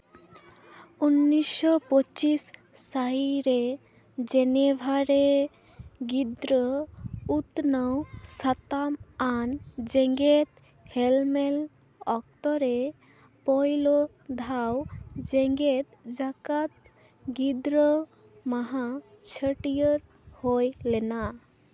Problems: none marked